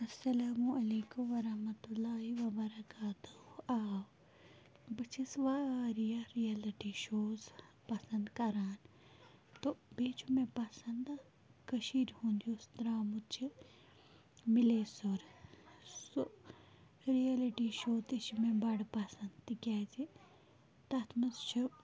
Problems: low volume